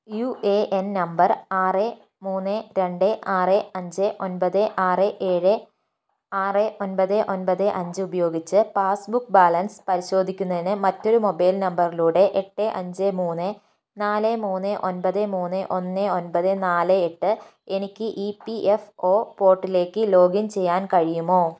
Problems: none marked